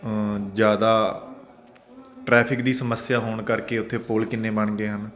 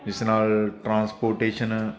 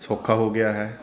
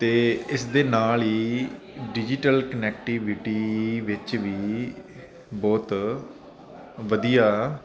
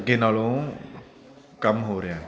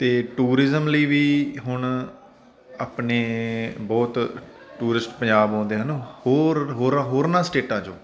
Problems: constant background noise, continuous background conversations